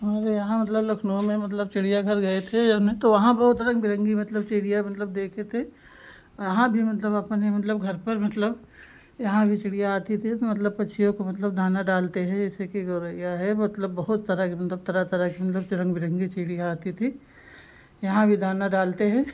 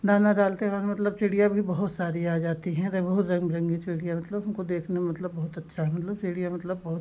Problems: constant background noise